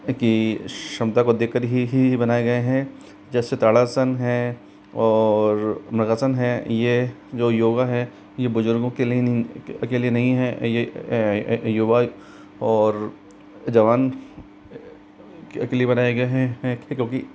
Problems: constant background noise